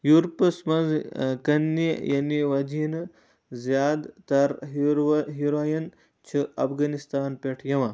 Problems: low volume